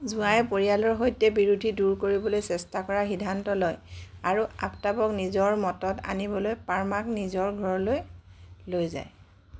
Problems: background sounds at intervals